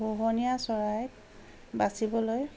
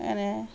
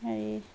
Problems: constant background noise